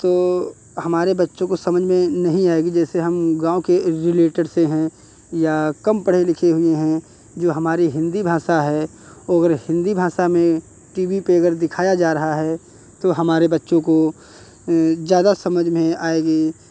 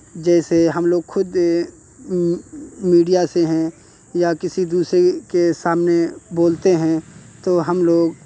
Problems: constant background noise